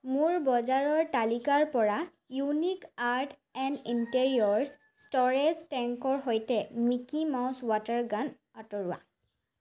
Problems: none marked